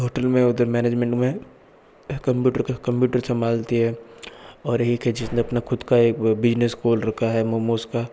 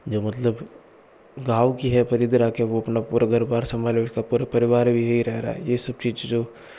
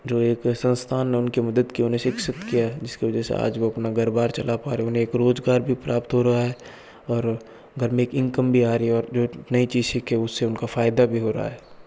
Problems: background sounds at intervals, background conversations at intervals